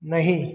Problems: background sounds at intervals, echo